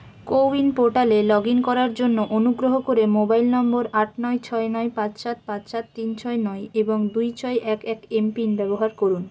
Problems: constant background noise